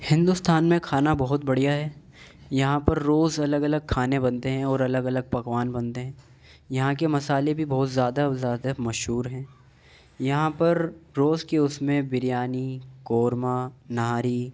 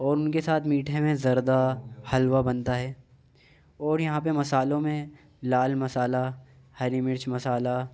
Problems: background sounds at intervals